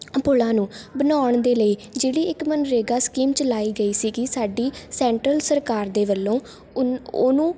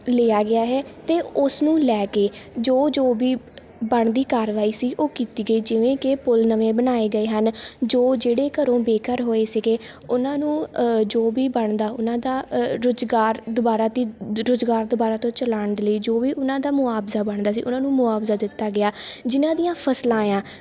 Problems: none marked